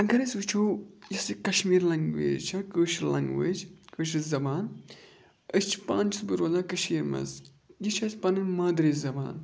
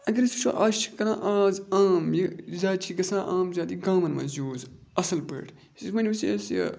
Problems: constant background noise